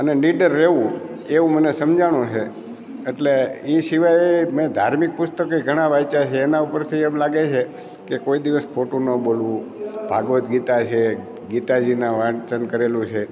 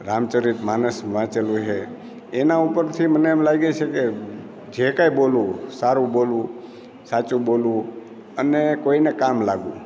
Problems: none marked